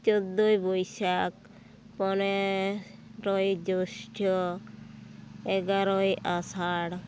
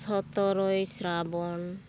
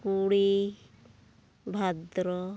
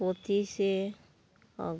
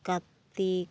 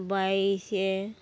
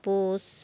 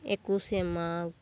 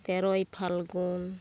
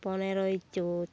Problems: none marked